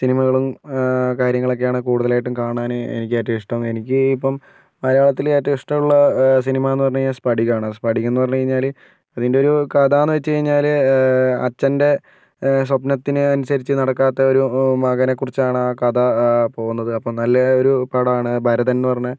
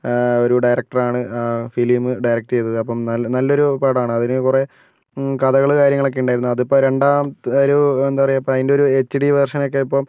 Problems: none marked